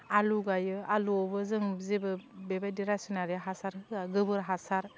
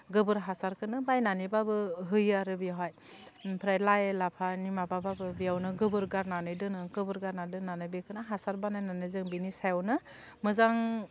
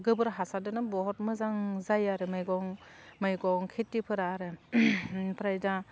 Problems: constant background noise